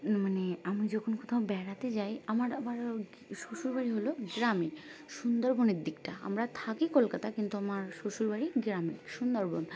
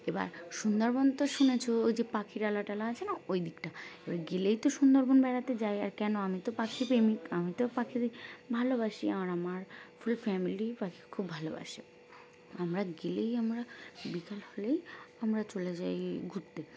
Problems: constant background noise, background conversations at intervals